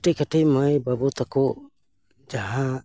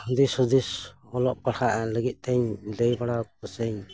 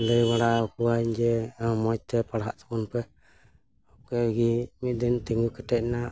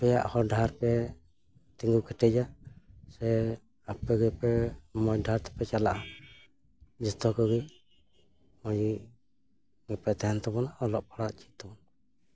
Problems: background sounds at intervals